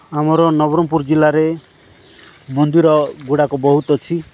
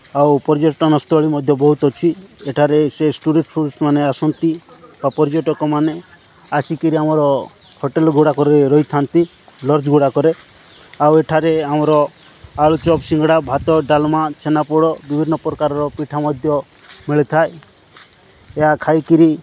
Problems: background sounds at intervals